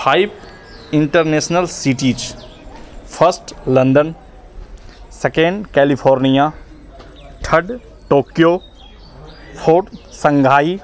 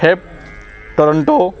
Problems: none marked